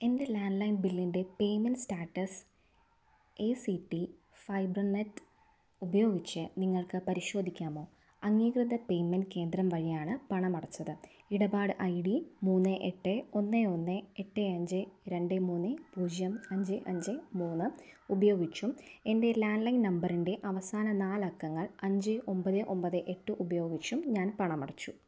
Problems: none marked